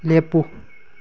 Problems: none marked